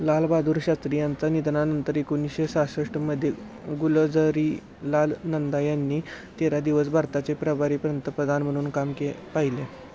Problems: constant background noise, background conversations at intervals